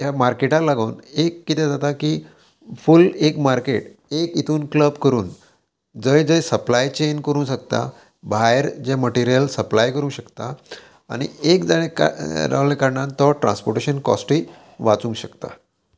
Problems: constant background noise